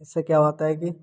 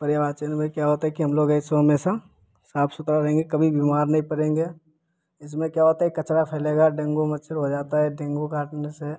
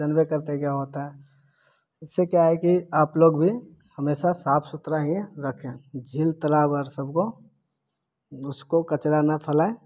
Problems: none marked